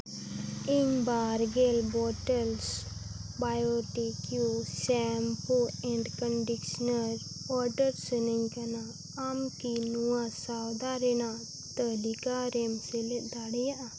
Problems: constant background noise, low volume